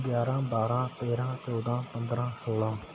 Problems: background sounds at intervals